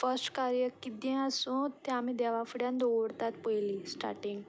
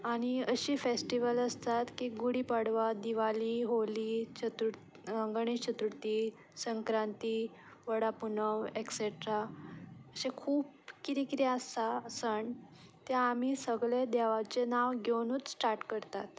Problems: none marked